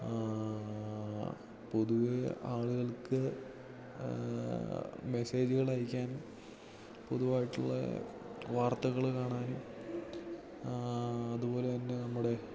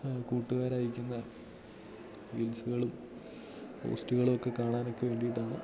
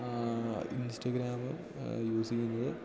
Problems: background sounds at intervals, low volume